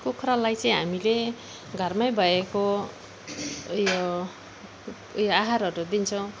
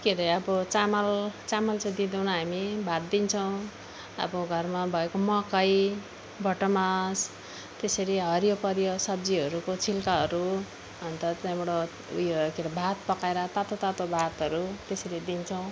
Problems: none marked